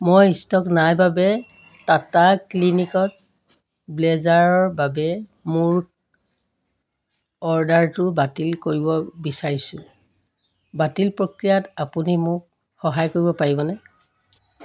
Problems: constant background noise, background conversations at intervals